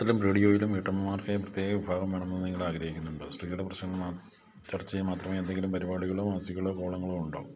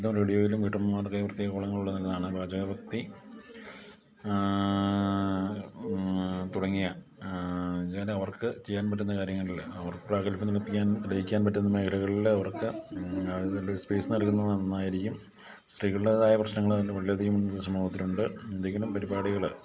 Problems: low volume